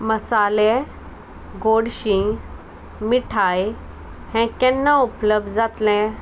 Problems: constant background noise